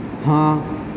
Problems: constant background noise, echo